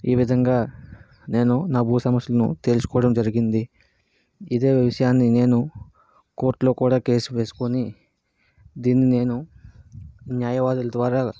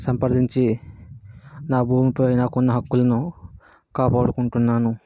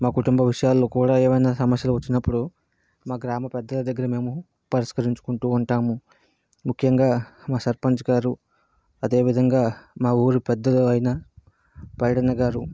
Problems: background sounds at intervals